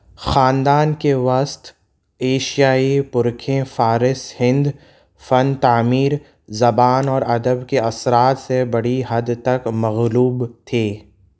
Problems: background sounds at intervals